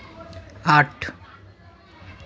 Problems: none marked